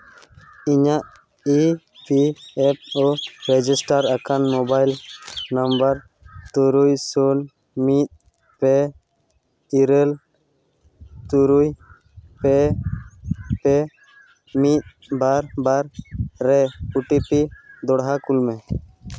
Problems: constant background noise